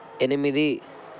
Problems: constant background noise